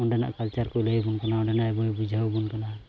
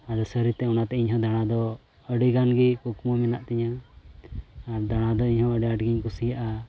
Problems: constant background noise